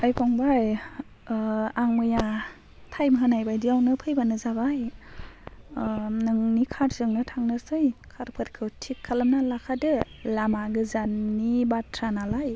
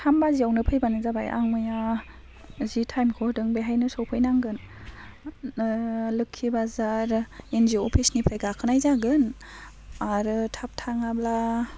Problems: constant background noise